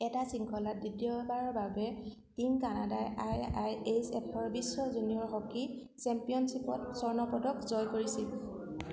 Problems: none marked